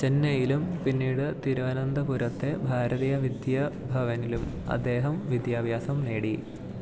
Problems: low volume